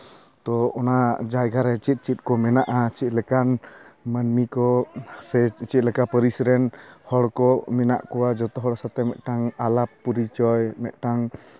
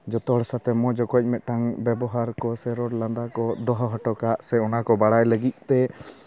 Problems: constant background noise, continuous background conversations